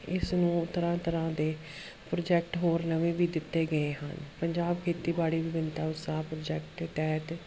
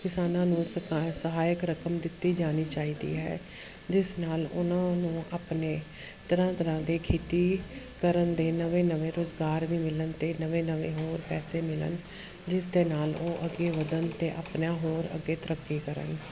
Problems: none marked